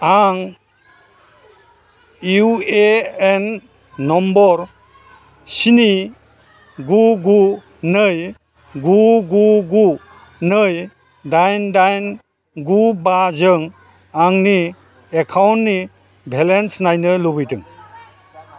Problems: constant background noise